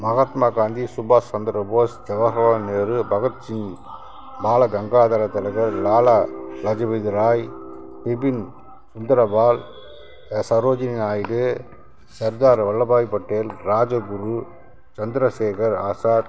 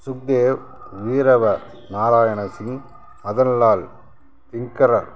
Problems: constant background noise